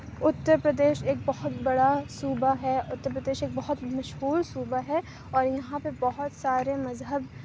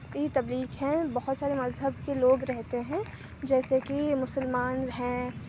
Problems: none marked